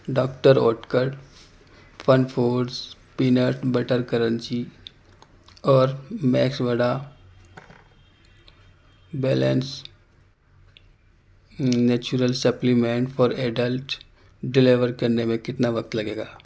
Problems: constant background noise